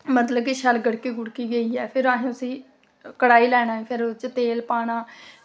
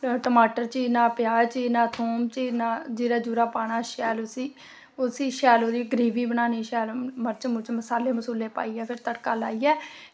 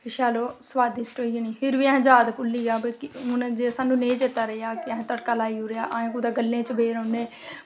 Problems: constant background noise